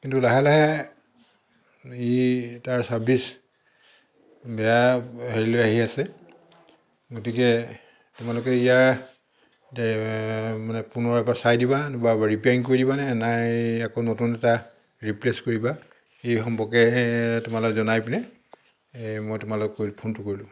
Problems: background sounds at intervals